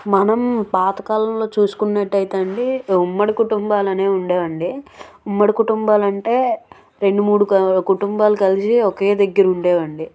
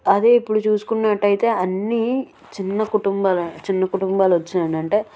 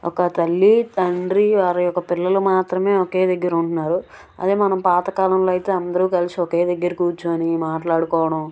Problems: background sounds at intervals, background conversations at intervals